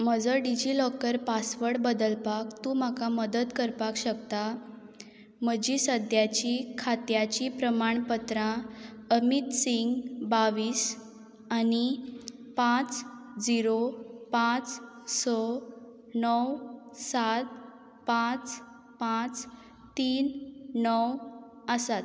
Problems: none marked